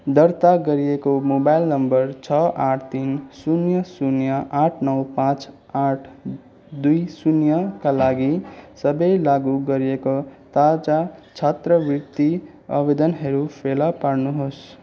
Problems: none marked